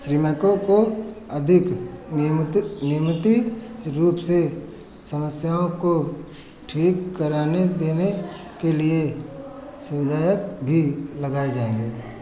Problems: none marked